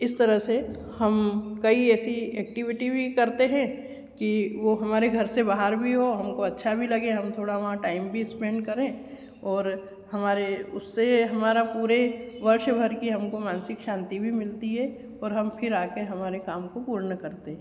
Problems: constant background noise